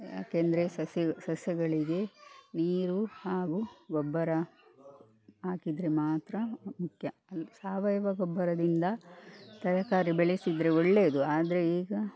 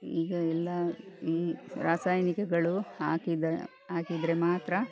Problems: background sounds at intervals